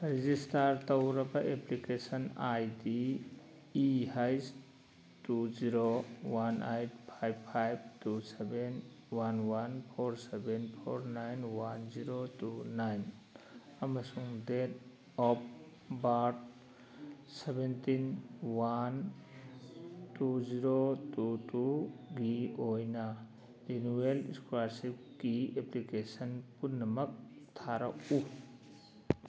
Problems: background sounds at intervals, background conversations at intervals